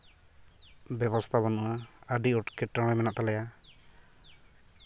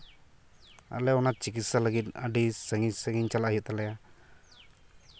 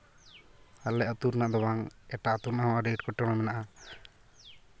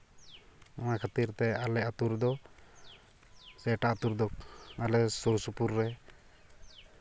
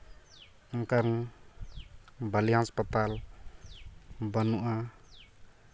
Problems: background sounds at intervals